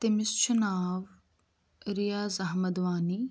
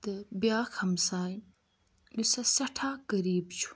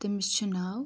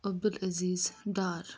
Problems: constant background noise